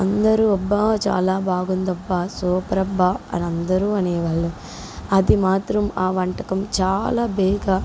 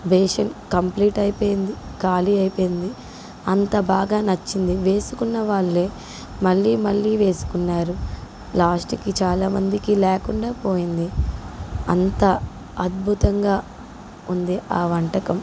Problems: none marked